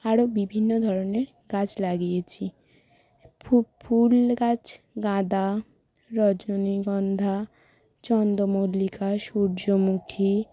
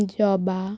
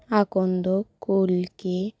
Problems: constant background noise